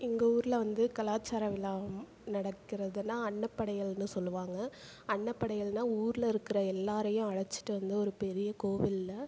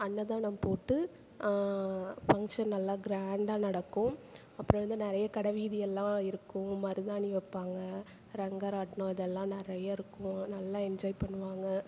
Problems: none marked